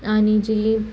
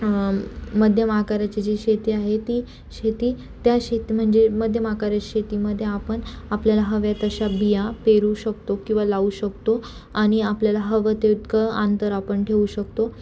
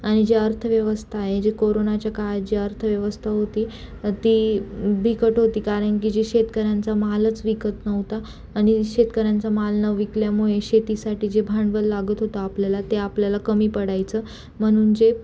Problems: constant background noise